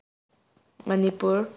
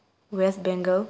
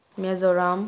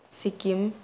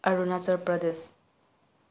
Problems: background sounds at intervals